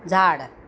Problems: background sounds at intervals